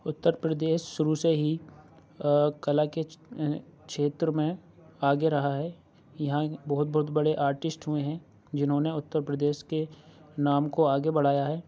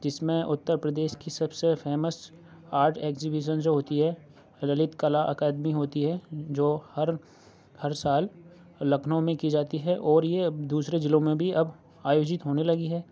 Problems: low volume